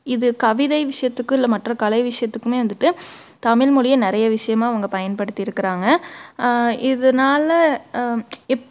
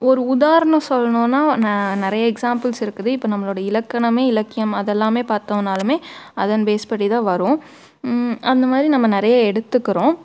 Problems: background sounds at intervals